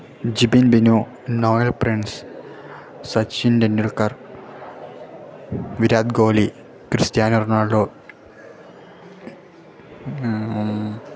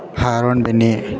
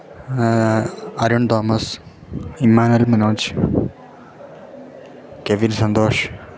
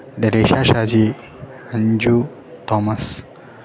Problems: background sounds at intervals